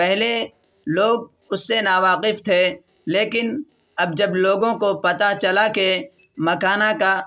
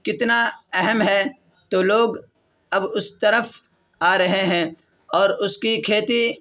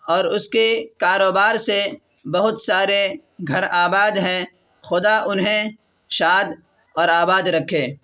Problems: none marked